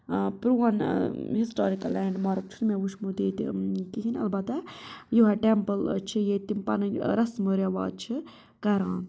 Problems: none marked